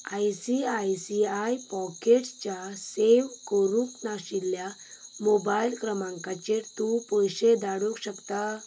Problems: background sounds at intervals